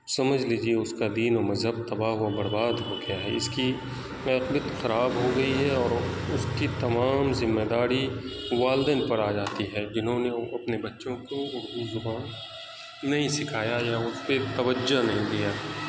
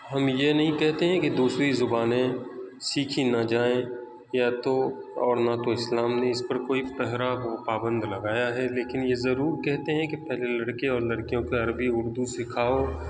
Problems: constant background noise